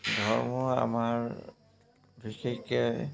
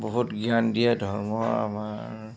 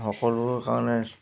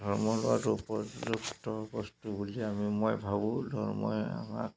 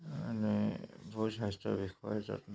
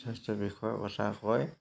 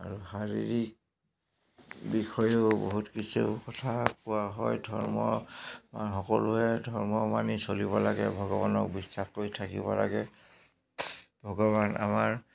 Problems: constant background noise